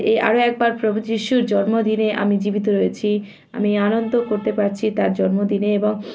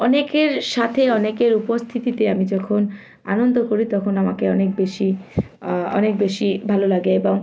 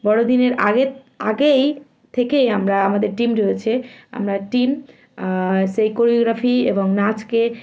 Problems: constant background noise